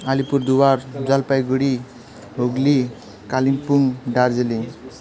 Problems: background sounds at intervals